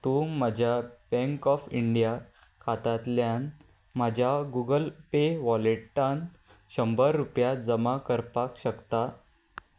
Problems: none marked